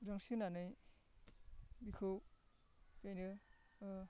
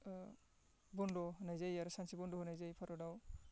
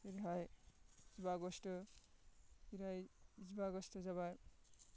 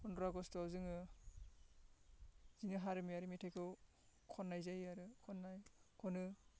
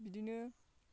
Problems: constant background noise